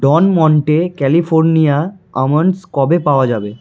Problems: background sounds at intervals